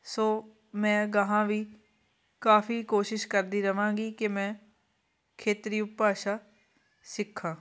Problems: constant background noise, background conversations at intervals